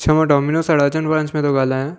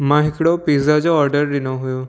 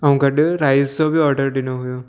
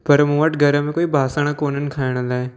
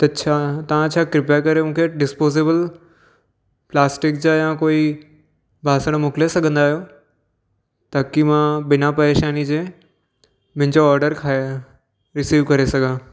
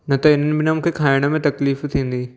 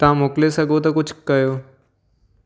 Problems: none marked